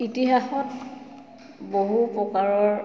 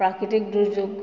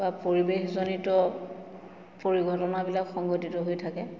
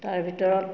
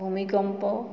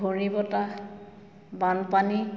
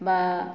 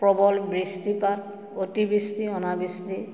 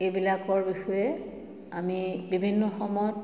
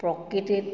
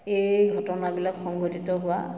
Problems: constant background noise, background conversations at intervals, echo